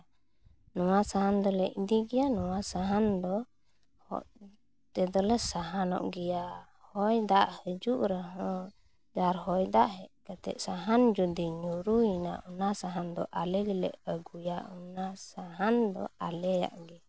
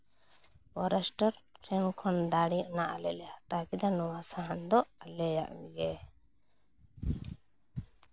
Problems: background sounds at intervals